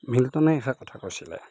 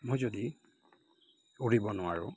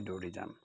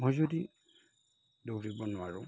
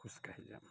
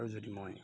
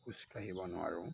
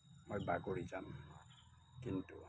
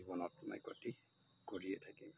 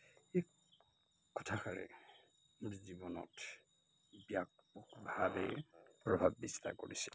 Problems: constant background noise, background conversations at intervals